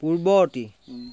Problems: none marked